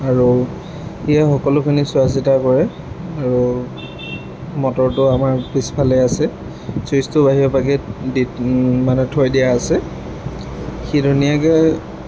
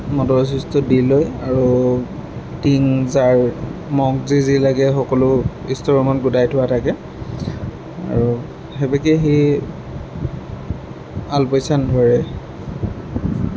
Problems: background sounds at intervals